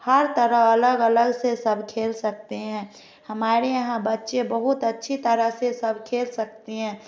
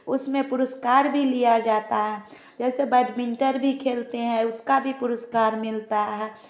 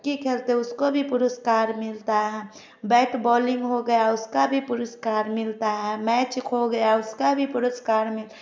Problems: none marked